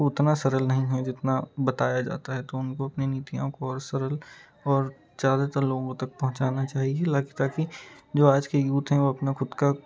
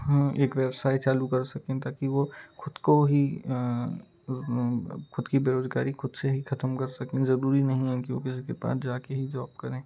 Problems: constant background noise, continuous background conversations